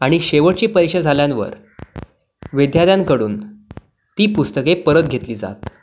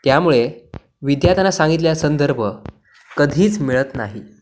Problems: none marked